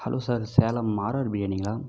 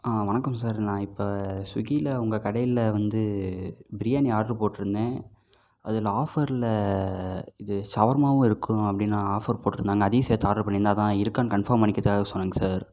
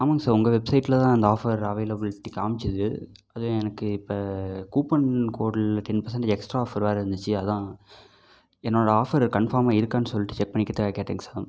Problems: none marked